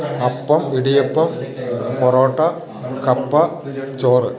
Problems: background sounds at intervals